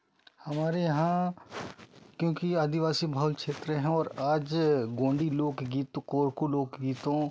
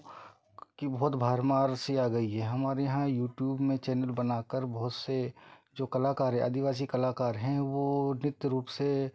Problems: background sounds at intervals